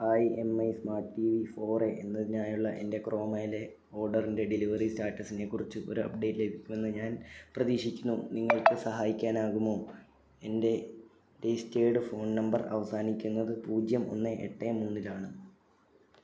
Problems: none marked